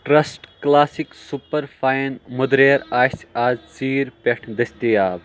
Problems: background sounds at intervals, background conversations at intervals